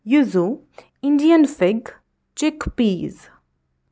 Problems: none marked